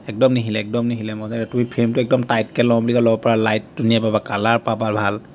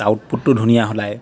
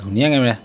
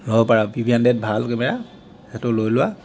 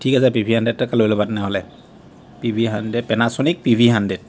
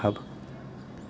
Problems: constant background noise